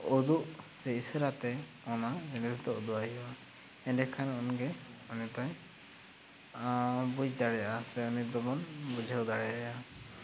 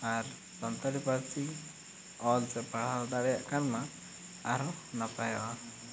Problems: constant background noise